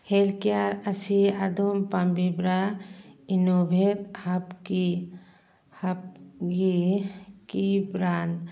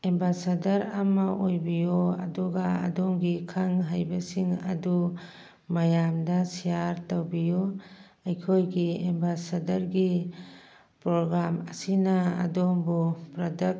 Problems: background conversations at intervals